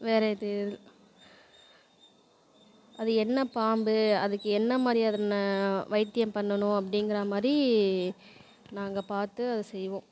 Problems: constant background noise